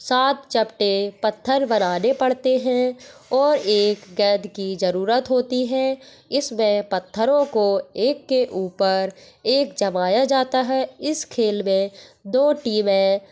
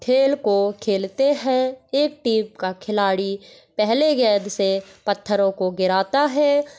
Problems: none marked